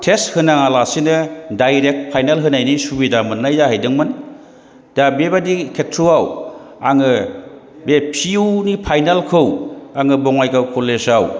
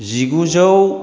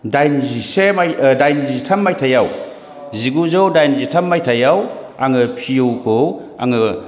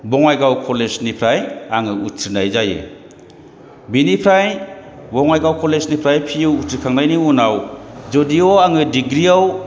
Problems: background sounds at intervals, background conversations at intervals